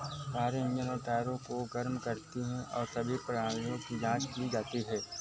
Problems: none marked